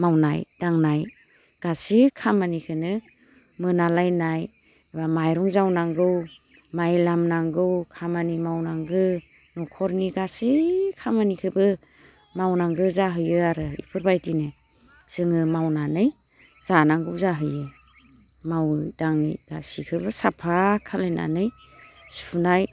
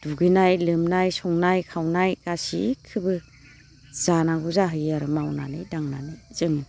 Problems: constant background noise